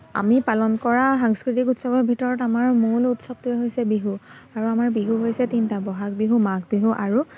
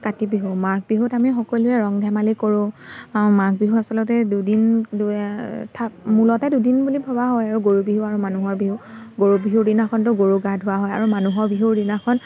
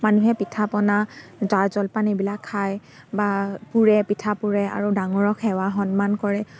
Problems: constant background noise